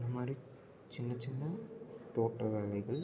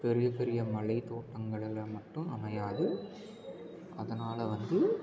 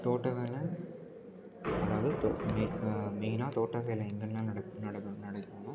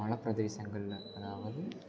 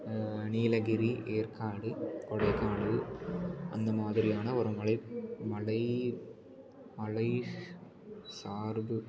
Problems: low volume